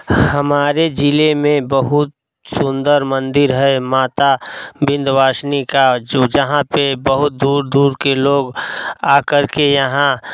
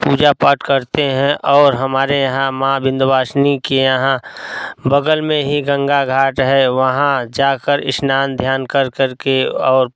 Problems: background sounds at intervals